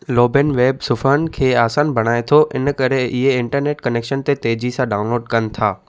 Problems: none marked